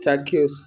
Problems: none marked